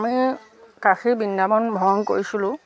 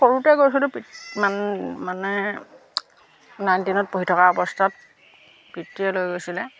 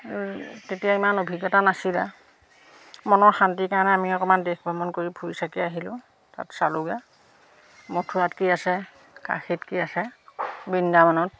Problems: constant background noise